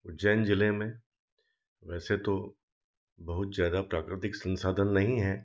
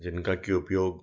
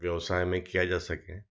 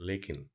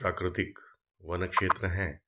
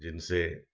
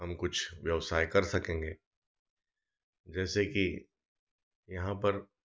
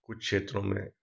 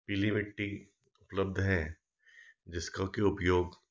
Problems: none marked